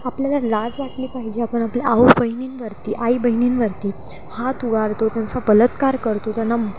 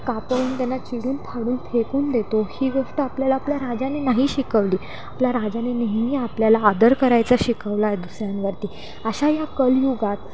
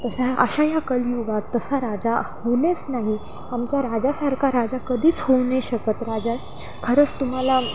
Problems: constant background noise, background conversations at intervals